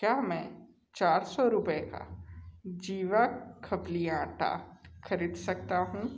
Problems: constant background noise, echo